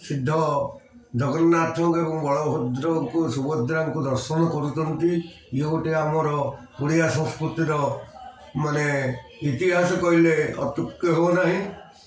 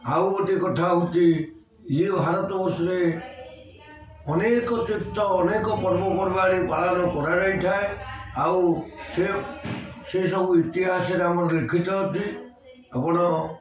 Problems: constant background noise, continuous background conversations